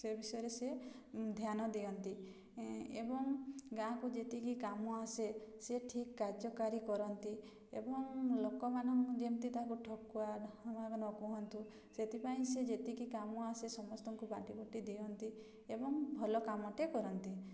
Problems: none marked